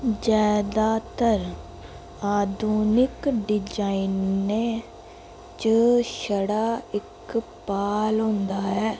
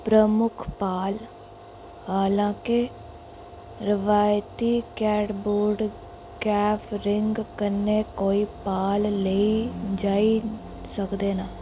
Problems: constant background noise